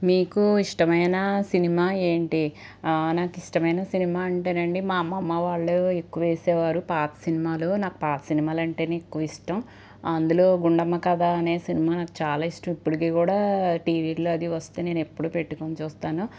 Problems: none marked